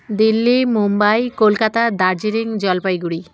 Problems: constant background noise